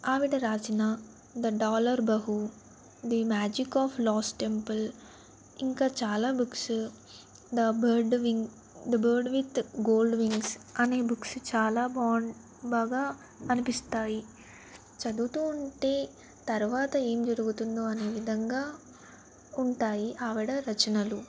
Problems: none marked